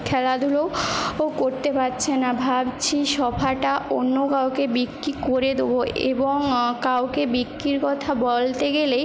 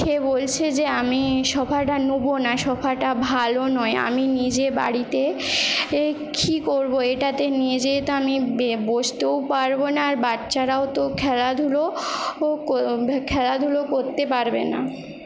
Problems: constant background noise